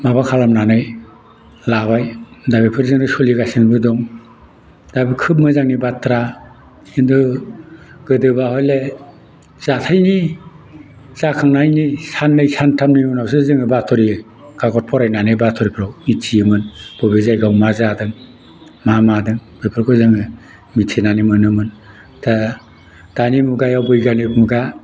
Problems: none marked